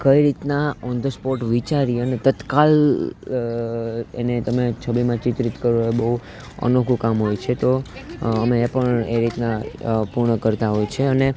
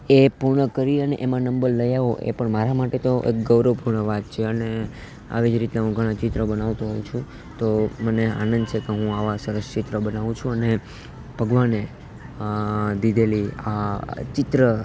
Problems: none marked